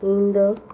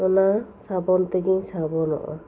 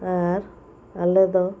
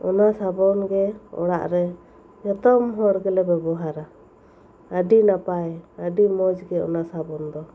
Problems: constant background noise